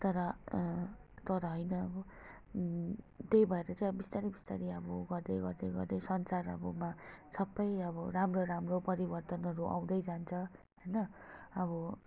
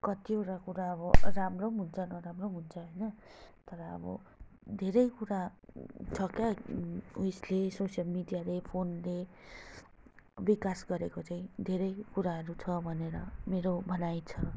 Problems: constant background noise